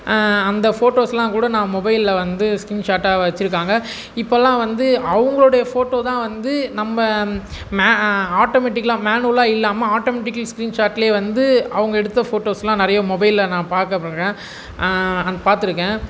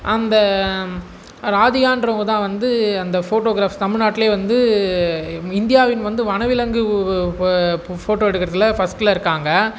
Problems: none marked